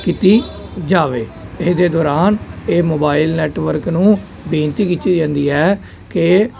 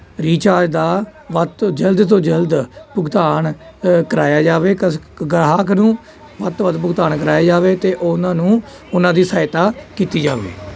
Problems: constant background noise, continuous background conversations